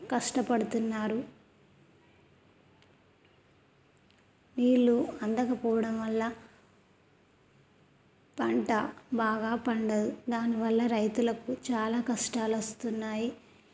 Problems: none marked